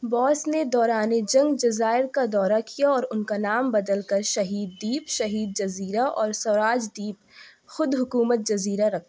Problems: none marked